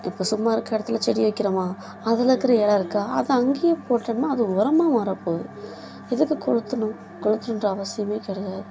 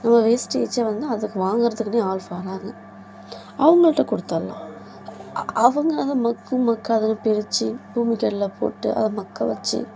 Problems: background sounds at intervals, background conversations at intervals